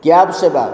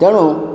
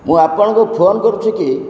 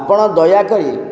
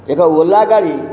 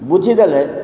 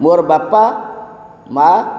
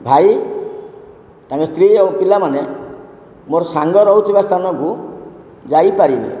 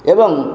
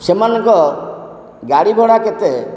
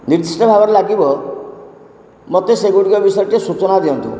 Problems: constant background noise